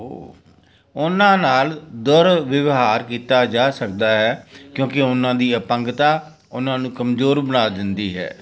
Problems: background conversations at intervals